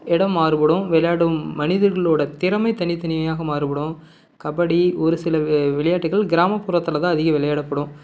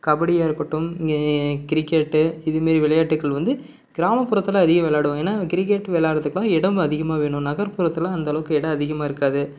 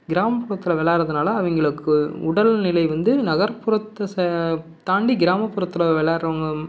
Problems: none marked